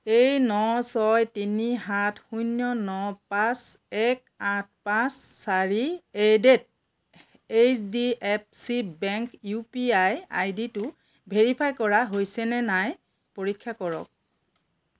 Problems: background sounds at intervals